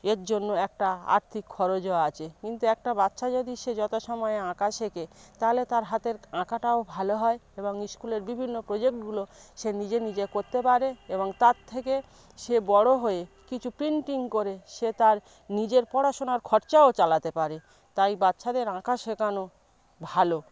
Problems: none marked